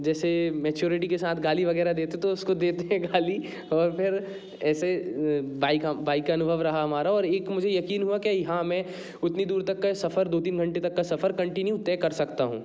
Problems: background sounds at intervals